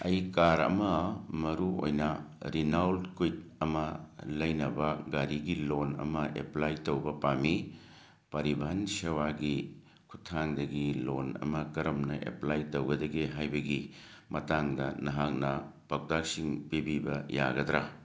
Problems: none marked